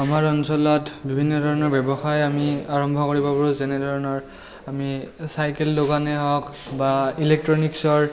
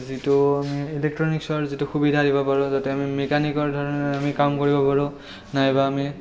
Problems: none marked